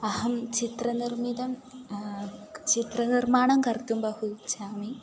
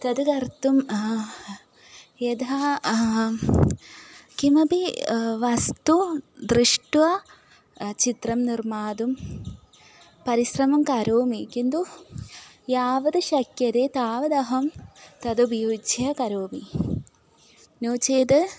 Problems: background sounds at intervals